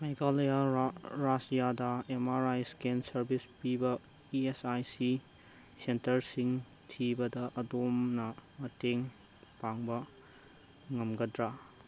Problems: constant background noise